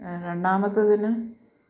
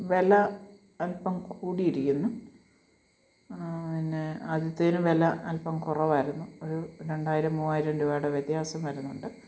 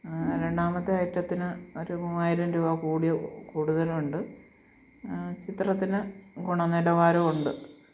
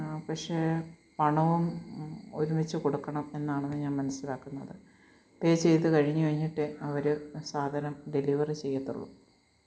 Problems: low volume